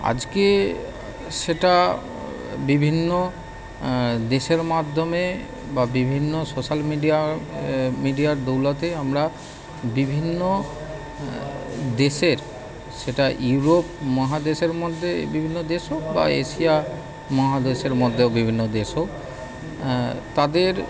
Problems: none marked